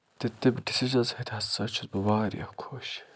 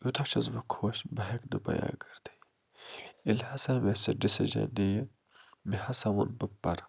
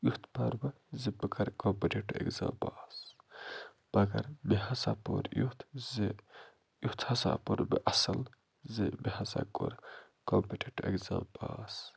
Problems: low volume